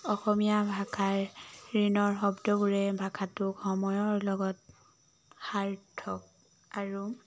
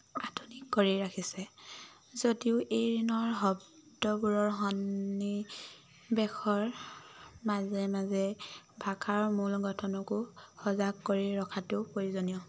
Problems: none marked